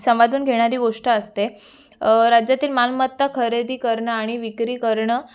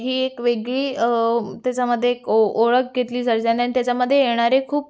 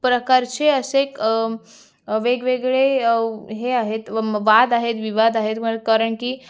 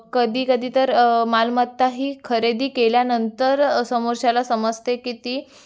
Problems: none marked